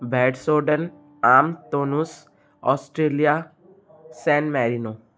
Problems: constant background noise